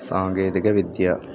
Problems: constant background noise